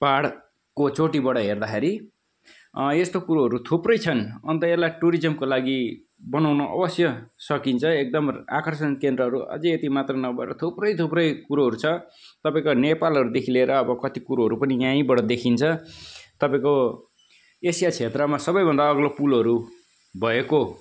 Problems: none marked